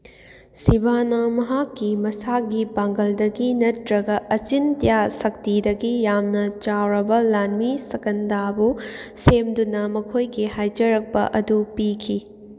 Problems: none marked